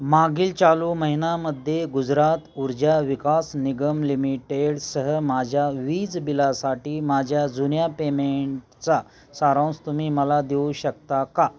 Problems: constant background noise, continuous background conversations